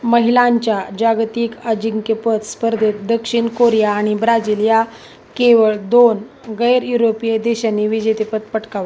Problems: none marked